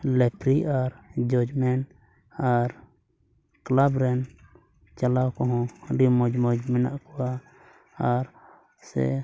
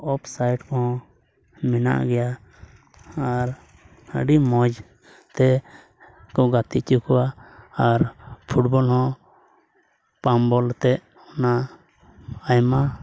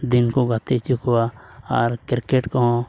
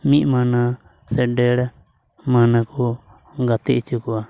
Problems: background sounds at intervals